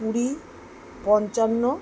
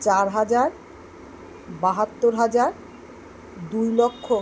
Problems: background sounds at intervals